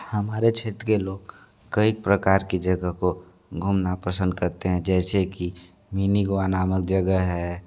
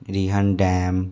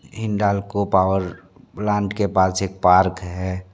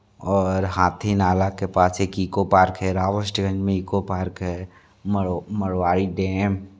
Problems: constant background noise, continuous background conversations